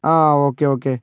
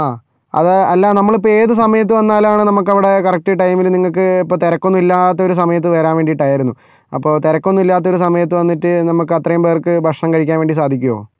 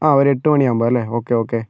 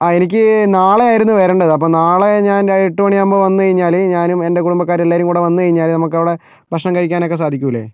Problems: none marked